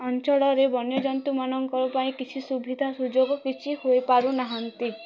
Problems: background sounds at intervals, continuous background conversations